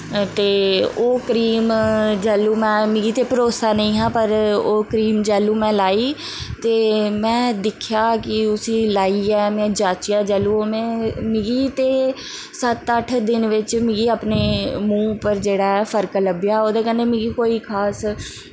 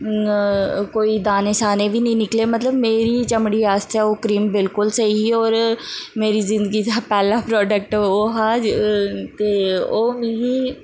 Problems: constant background noise